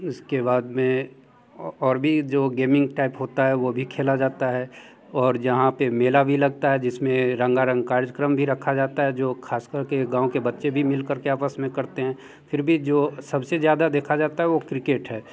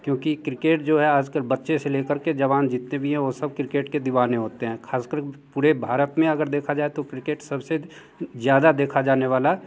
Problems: background sounds at intervals, background conversations at intervals